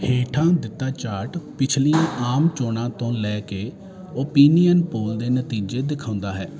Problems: constant background noise